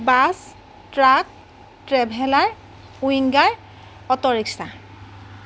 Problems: none marked